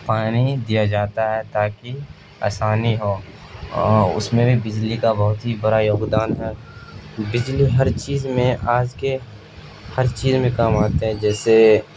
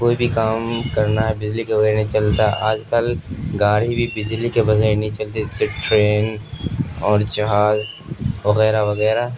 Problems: constant background noise